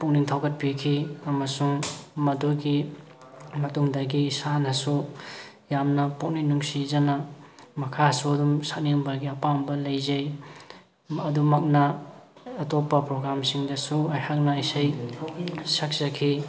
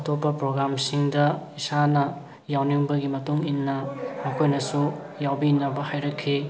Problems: background sounds at intervals, background conversations at intervals